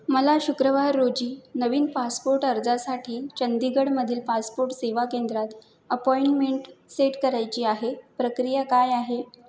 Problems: none marked